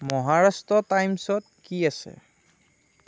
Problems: none marked